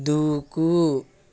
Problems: constant background noise